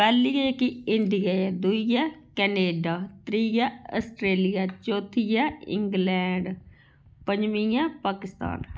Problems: constant background noise